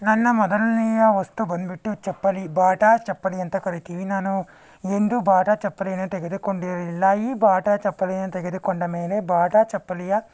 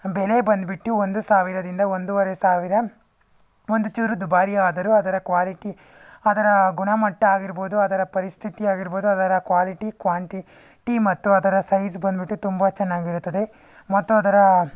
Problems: none marked